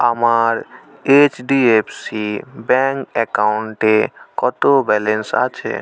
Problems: continuous background conversations